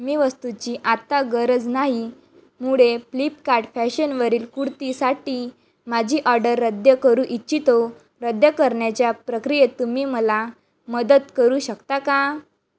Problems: background sounds at intervals